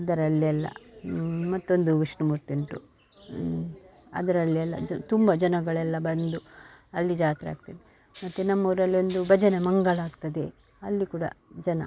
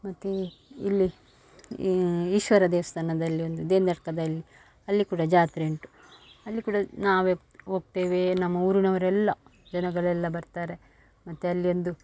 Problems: none marked